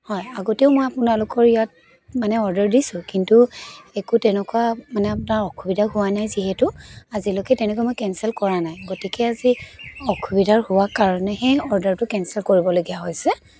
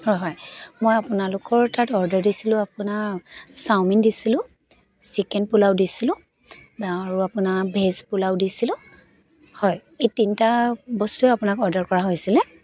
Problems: constant background noise, background conversations at intervals